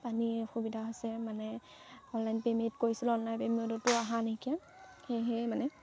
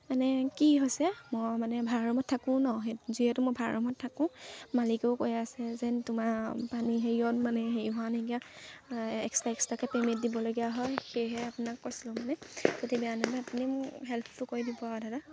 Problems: constant background noise, background conversations at intervals